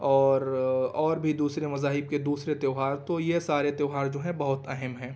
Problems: background sounds at intervals